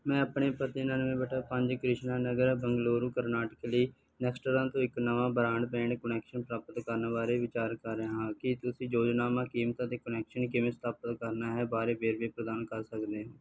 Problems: background sounds at intervals